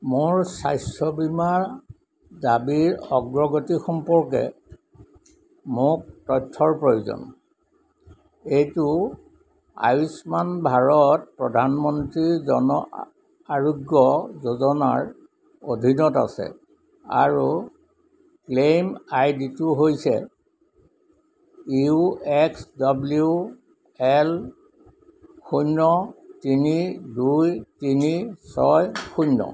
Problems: none marked